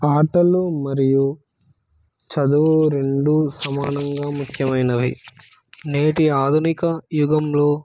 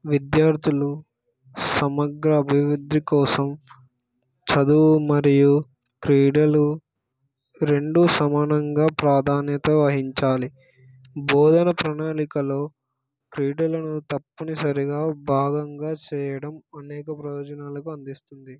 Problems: background sounds at intervals